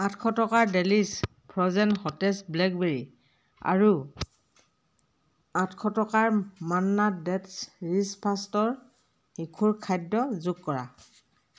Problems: background sounds at intervals, background conversations at intervals